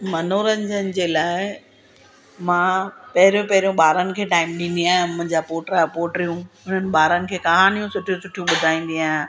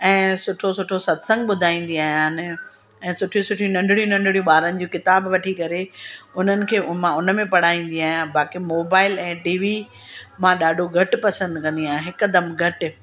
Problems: constant background noise